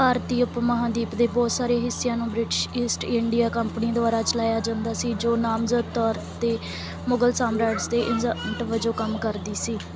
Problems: none marked